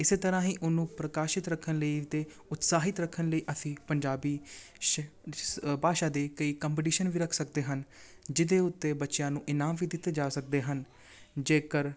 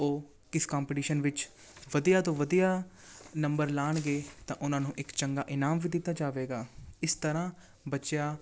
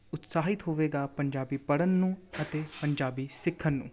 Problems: continuous background conversations